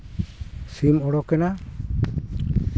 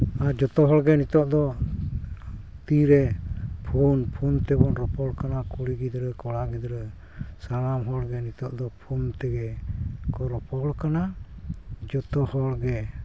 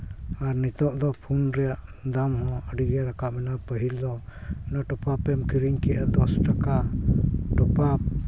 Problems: background sounds at intervals